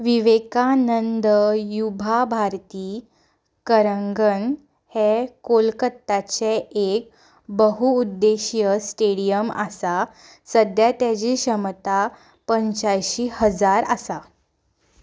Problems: background sounds at intervals